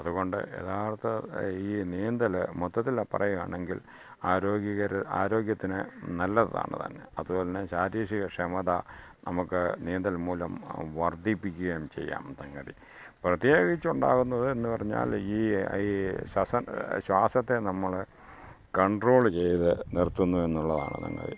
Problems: background sounds at intervals, low volume